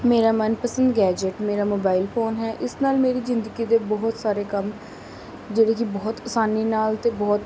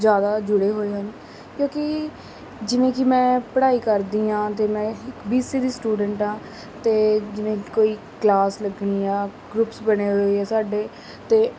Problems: constant background noise